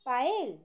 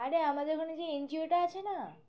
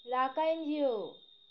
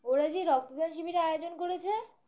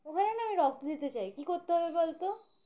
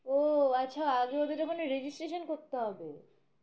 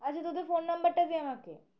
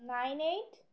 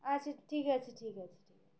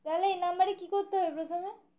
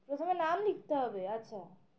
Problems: constant background noise, continuous background conversations